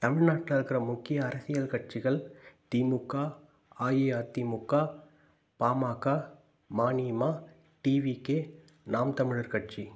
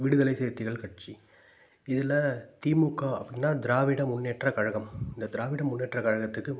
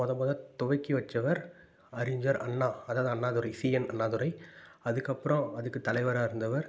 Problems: none marked